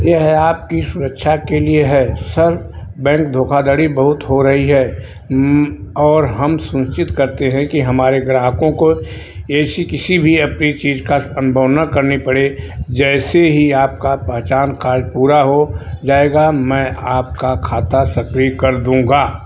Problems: background sounds at intervals